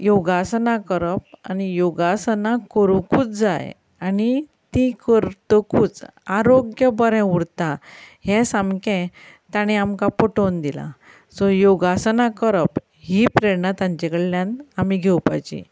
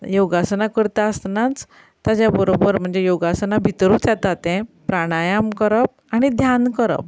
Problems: background sounds at intervals